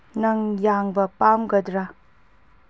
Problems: low volume